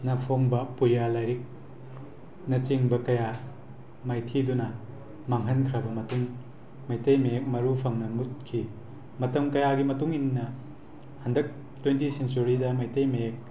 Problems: constant background noise